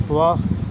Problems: none marked